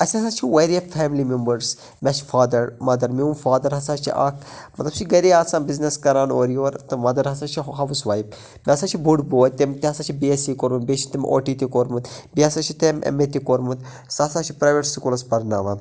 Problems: none marked